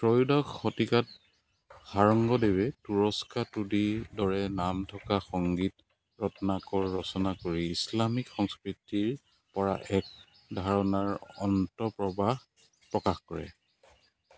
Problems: none marked